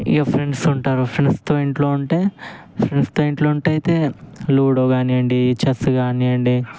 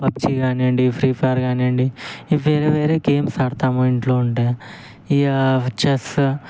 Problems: constant background noise